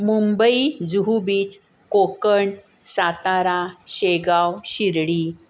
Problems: constant background noise